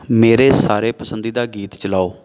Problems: background sounds at intervals